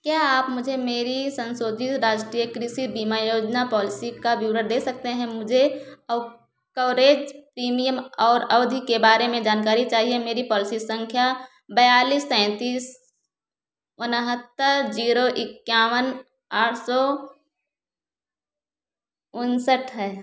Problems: none marked